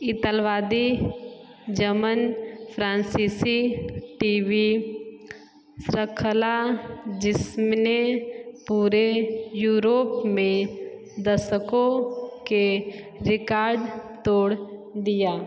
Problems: background sounds at intervals, echo